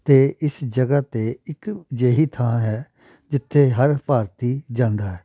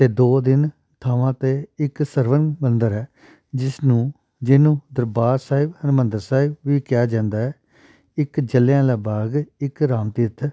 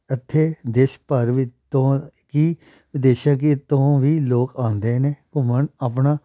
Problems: background sounds at intervals